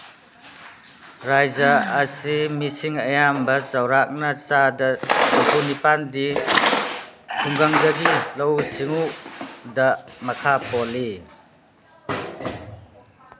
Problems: background sounds at intervals